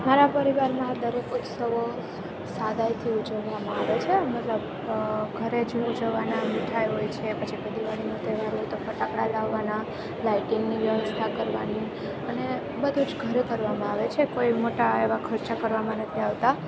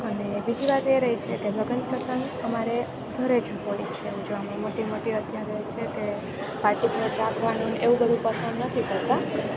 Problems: constant background noise